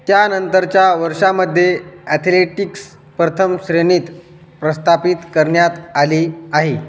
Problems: constant background noise, echo